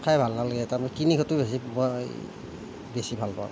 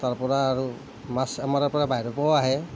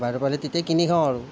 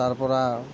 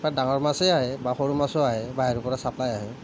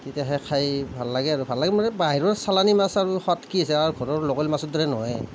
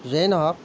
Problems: none marked